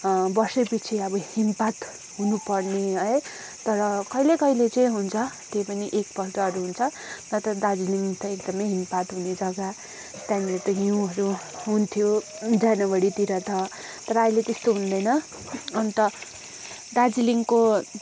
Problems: constant background noise